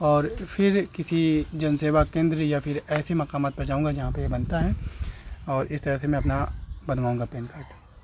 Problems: constant background noise